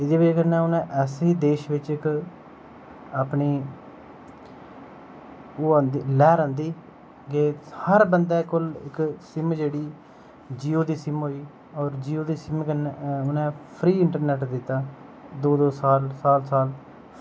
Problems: constant background noise